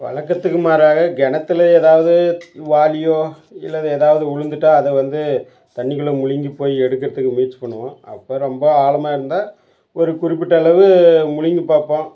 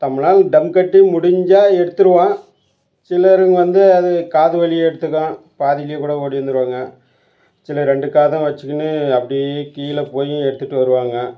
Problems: background sounds at intervals